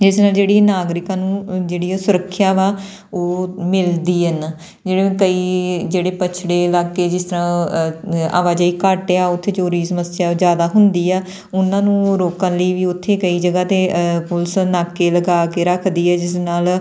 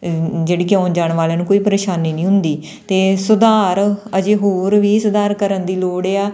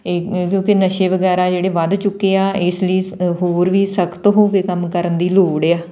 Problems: none marked